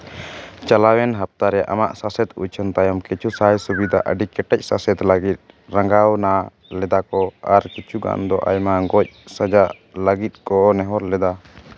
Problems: none marked